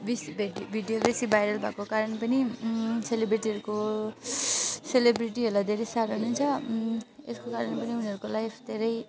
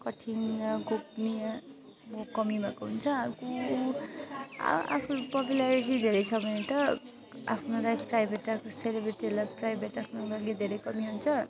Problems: constant background noise